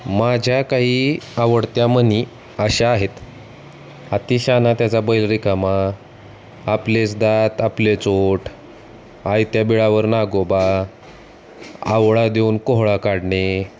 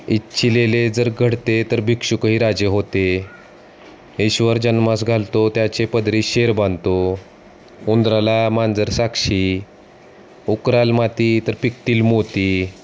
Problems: constant background noise, background conversations at intervals